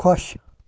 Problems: none marked